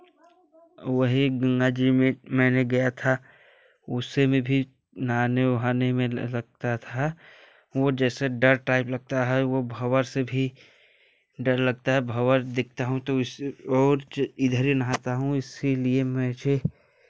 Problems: none marked